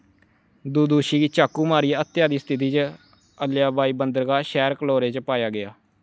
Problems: none marked